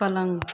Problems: background sounds at intervals